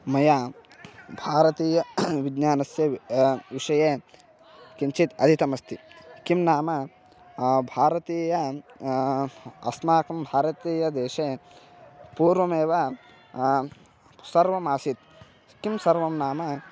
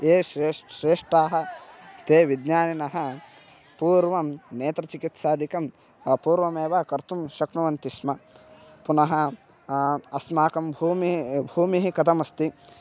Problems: background sounds at intervals